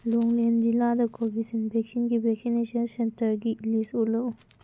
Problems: low volume